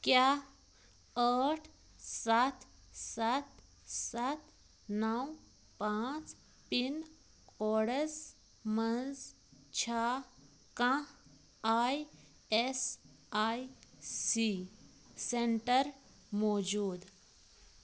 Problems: none marked